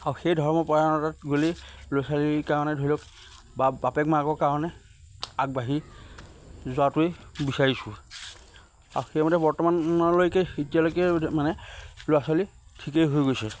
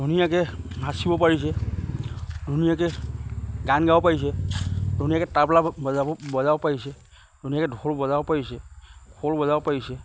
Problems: constant background noise